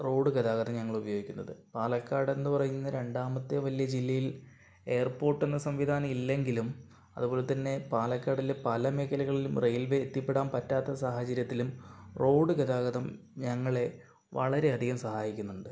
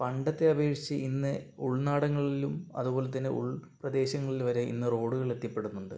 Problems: low volume